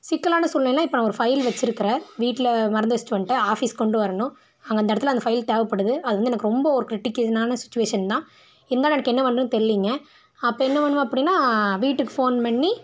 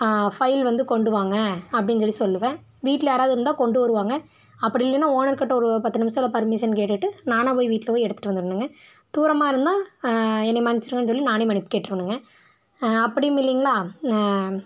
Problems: none marked